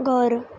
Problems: none marked